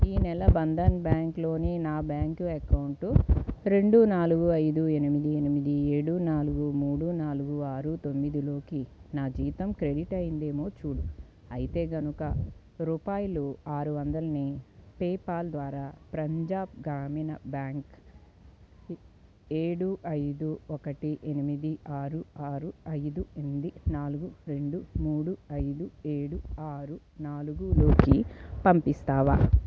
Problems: background sounds at intervals